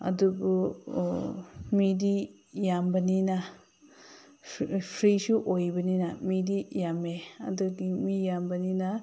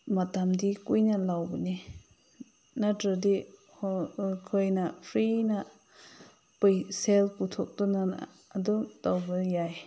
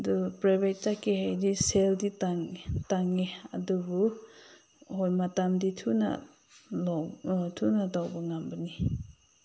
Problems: background sounds at intervals